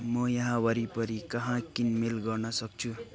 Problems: background conversations at intervals